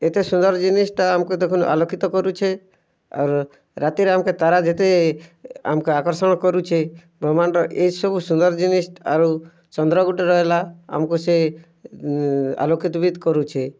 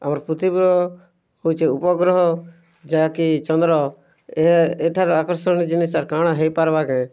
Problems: none marked